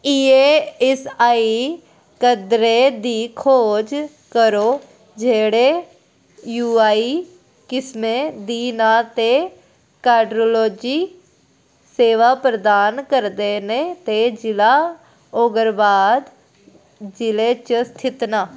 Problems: background sounds at intervals